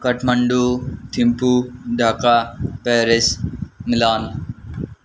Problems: constant background noise